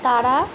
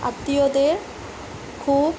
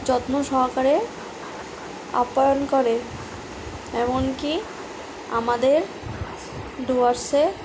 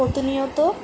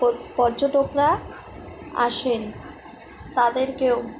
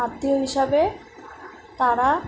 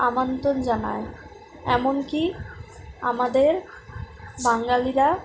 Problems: constant background noise